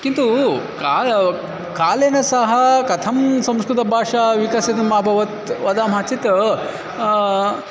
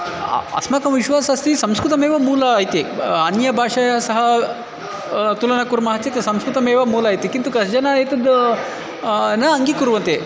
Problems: constant background noise, background conversations at intervals